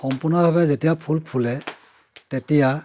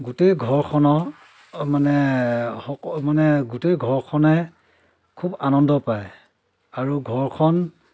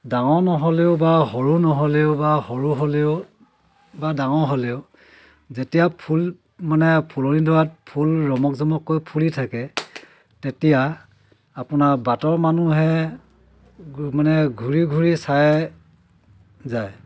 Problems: constant background noise, background conversations at intervals